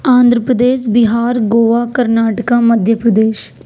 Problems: none marked